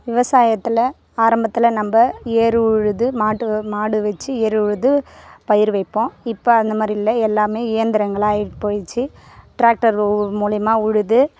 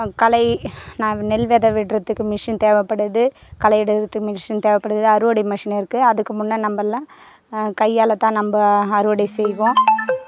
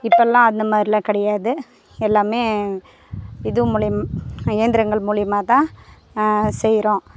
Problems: constant background noise